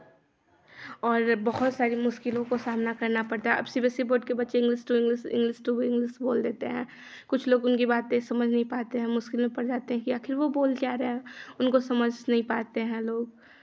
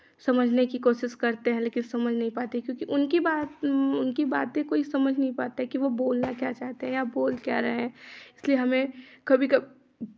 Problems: constant background noise, continuous background conversations